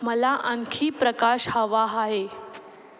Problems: echo